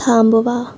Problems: constant background noise